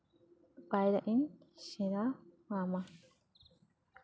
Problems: none marked